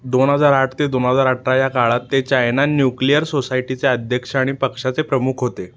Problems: none marked